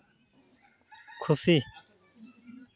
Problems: constant background noise